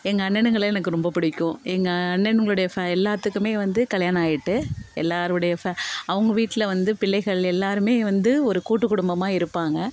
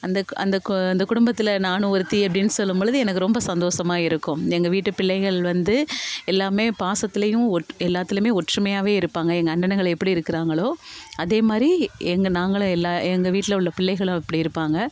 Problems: continuous background conversations